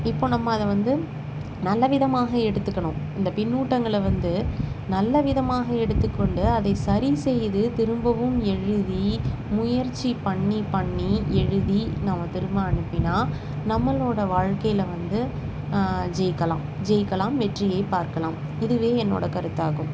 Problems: constant background noise